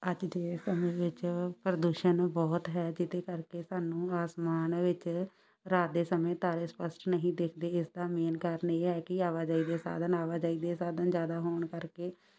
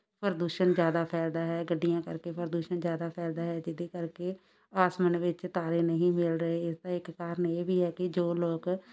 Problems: none marked